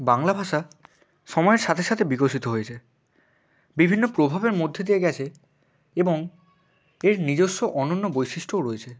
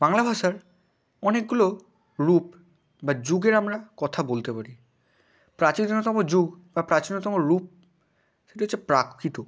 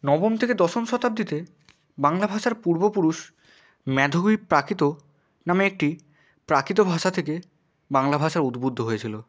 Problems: none marked